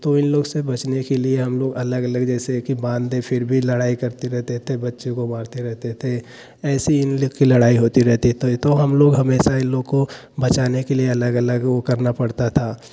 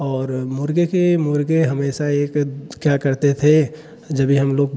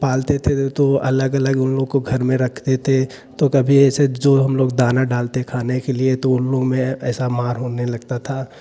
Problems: constant background noise